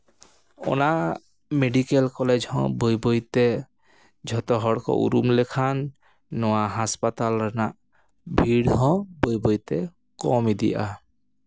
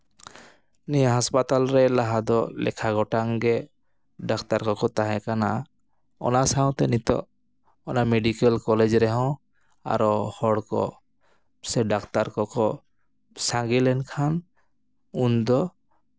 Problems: none marked